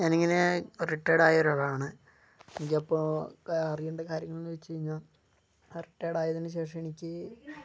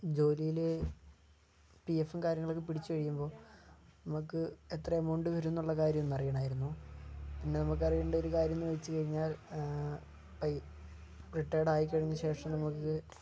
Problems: low volume